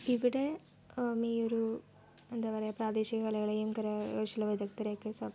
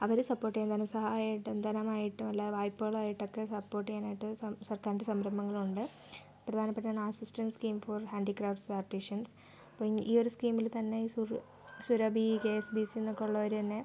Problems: background sounds at intervals, low volume